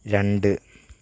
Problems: background sounds at intervals